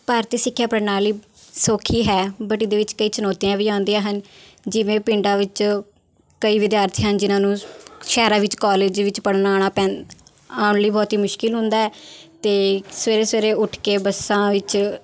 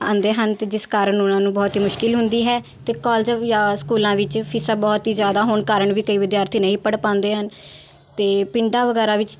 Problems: constant background noise